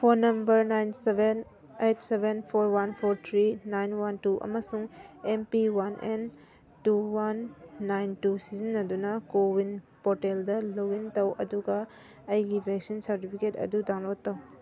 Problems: background sounds at intervals